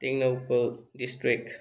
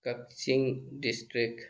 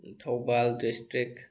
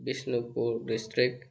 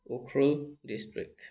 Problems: background conversations at intervals